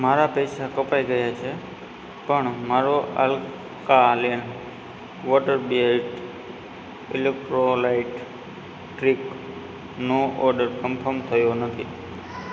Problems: constant background noise, background conversations at intervals